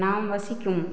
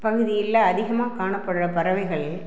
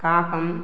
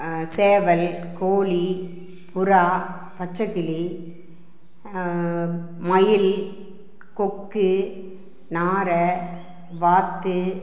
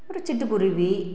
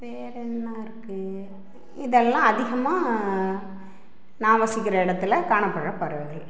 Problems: none marked